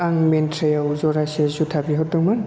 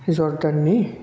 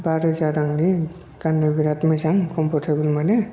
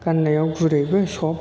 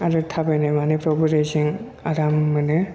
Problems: none marked